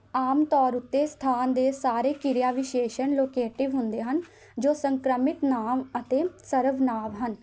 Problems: none marked